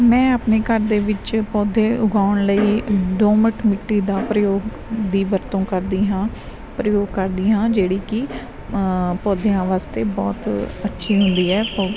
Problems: background sounds at intervals